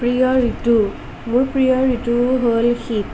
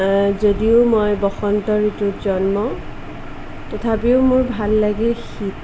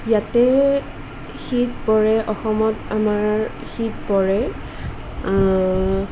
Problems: none marked